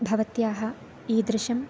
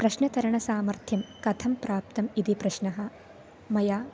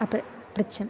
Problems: constant background noise